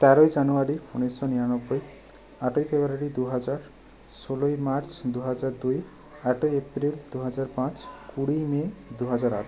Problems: constant background noise, background conversations at intervals